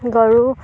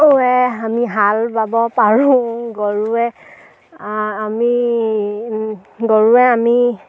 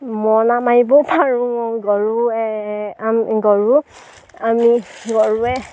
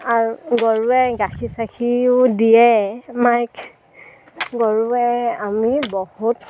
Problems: background sounds at intervals